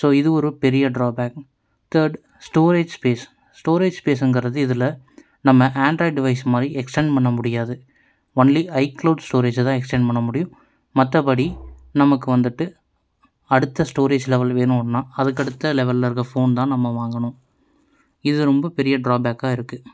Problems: none marked